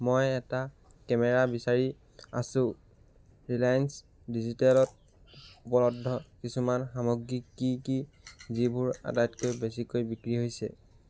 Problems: background sounds at intervals